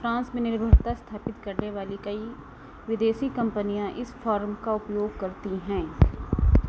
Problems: constant background noise